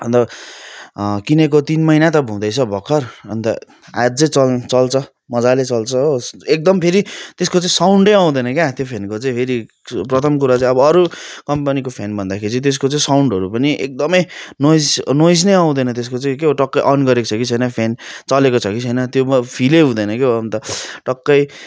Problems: continuous background conversations